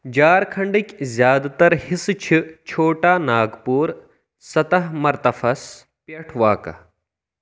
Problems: none marked